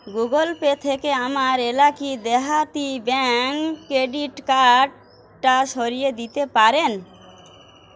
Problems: none marked